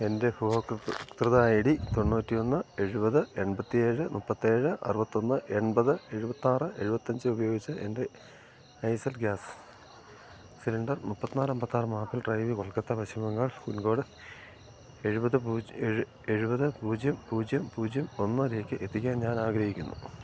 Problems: low volume